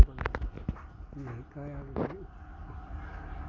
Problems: constant background noise